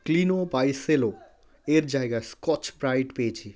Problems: background conversations at intervals